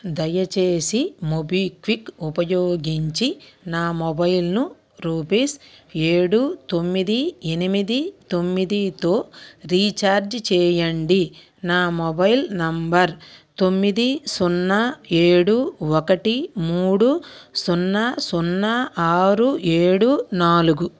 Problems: none marked